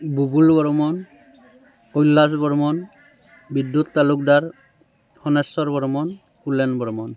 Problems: constant background noise